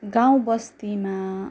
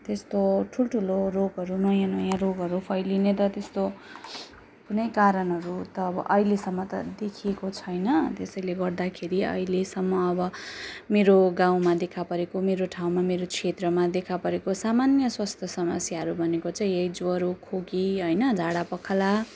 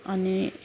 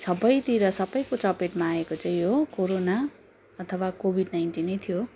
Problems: constant background noise